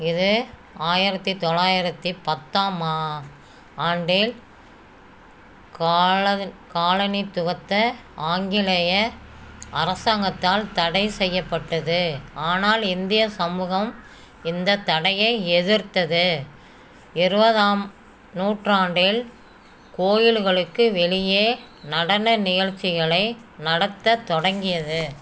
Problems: none marked